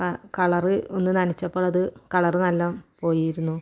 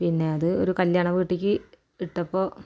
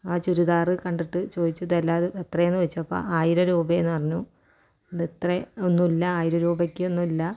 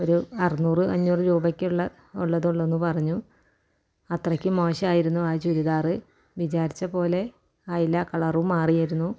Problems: none marked